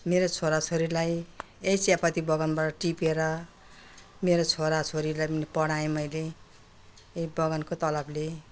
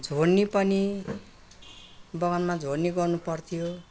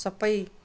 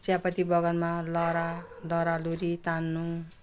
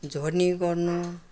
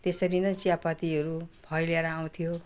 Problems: none marked